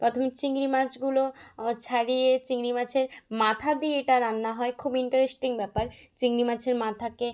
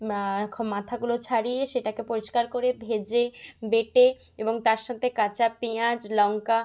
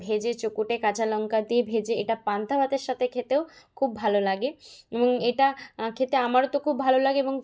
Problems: background sounds at intervals